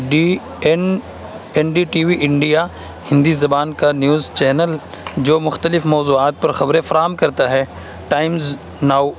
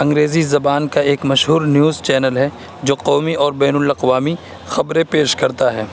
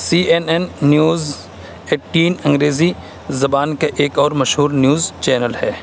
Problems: constant background noise